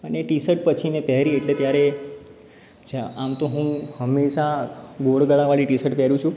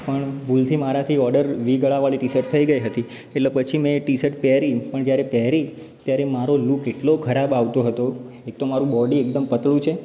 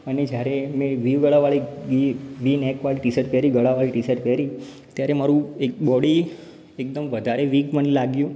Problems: background sounds at intervals